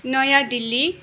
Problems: constant background noise